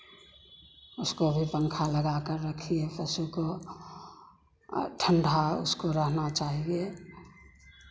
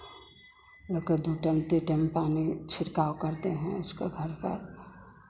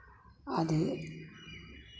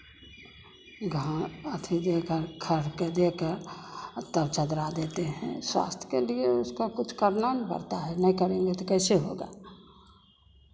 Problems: none marked